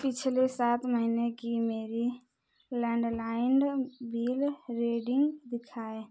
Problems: none marked